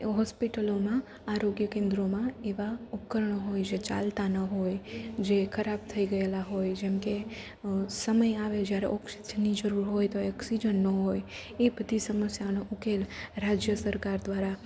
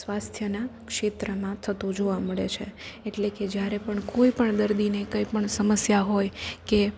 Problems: none marked